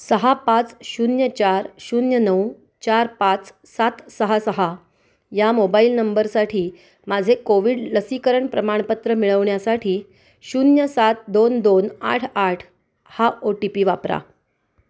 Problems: constant background noise